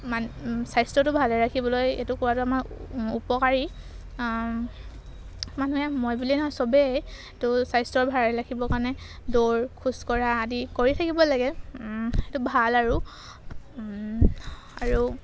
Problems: background sounds at intervals